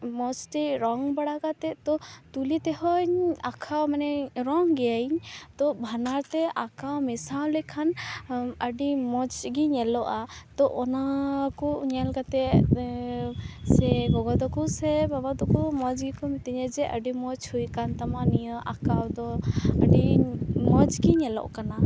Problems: background sounds at intervals